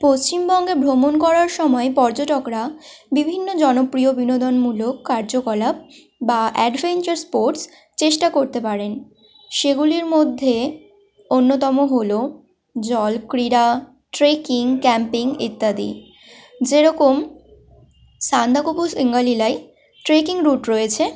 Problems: constant background noise, background conversations at intervals